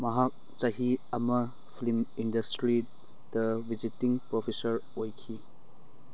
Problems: none marked